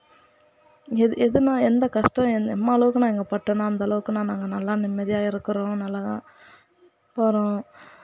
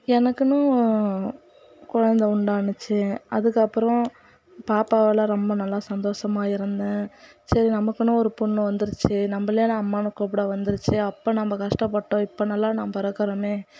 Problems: background sounds at intervals, background conversations at intervals